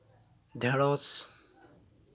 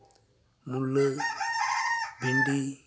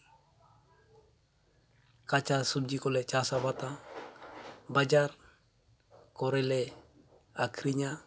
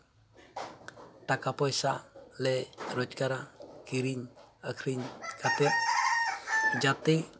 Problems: background sounds at intervals